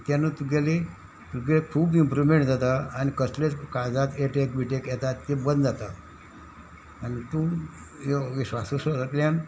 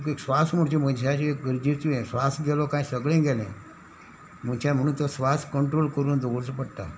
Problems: none marked